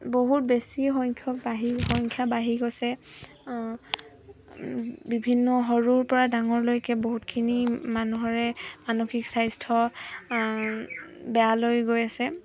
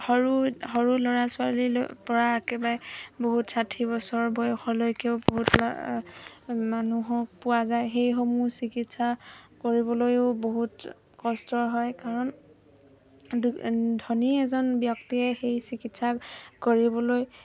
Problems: constant background noise, background conversations at intervals